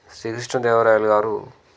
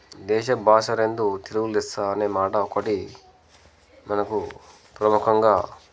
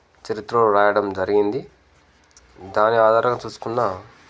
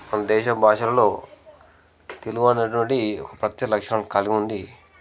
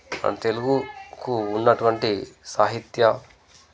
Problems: background conversations at intervals